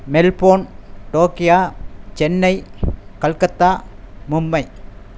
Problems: constant background noise